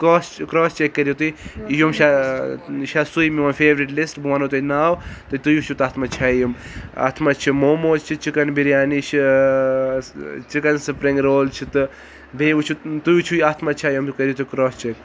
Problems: background sounds at intervals